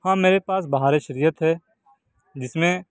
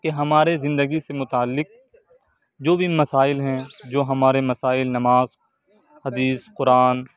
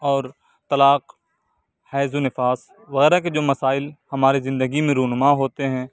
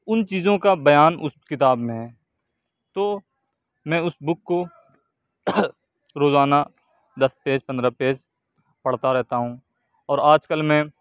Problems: background sounds at intervals